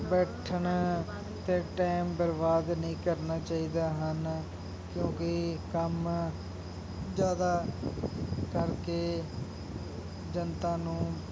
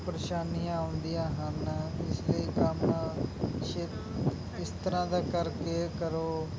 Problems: constant background noise, continuous background conversations